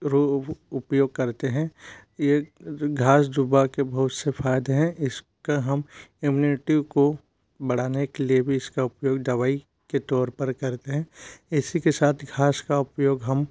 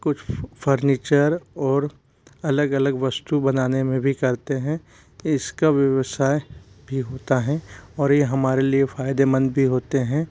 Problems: none marked